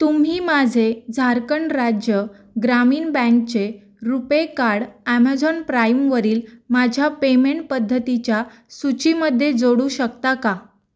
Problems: none marked